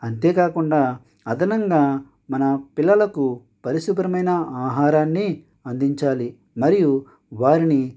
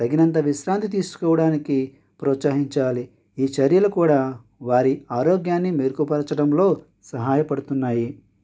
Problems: none marked